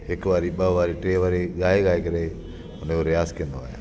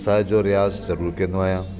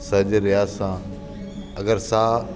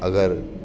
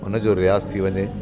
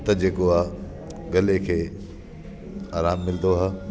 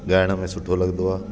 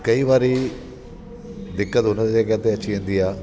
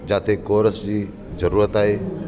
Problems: constant background noise